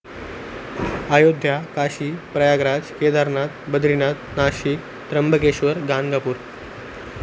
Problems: constant background noise